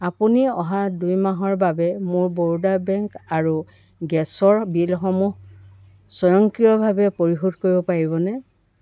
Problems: none marked